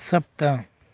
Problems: none marked